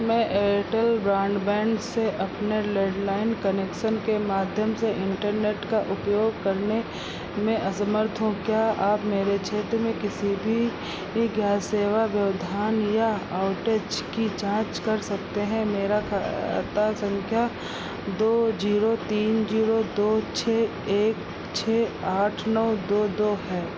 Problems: constant background noise